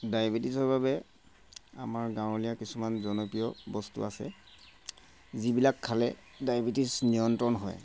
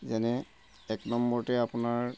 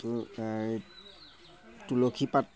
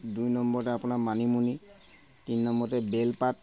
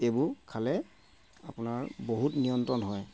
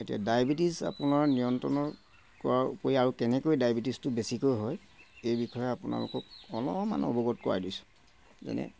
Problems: constant background noise